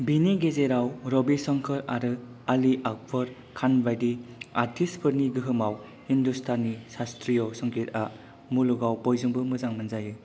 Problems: none marked